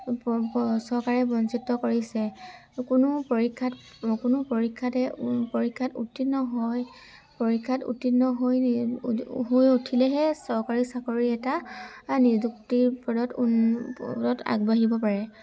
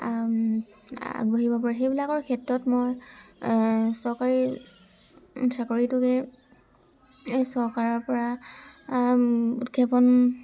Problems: constant background noise, background conversations at intervals